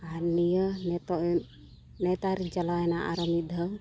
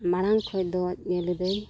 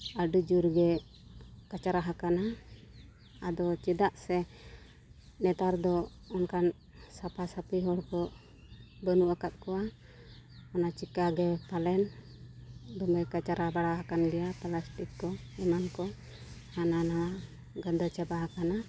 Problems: constant background noise